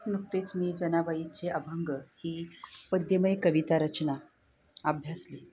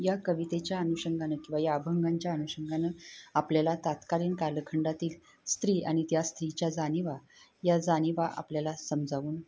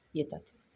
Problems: background sounds at intervals